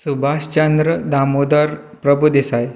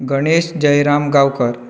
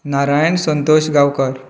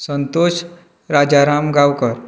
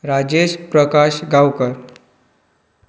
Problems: none marked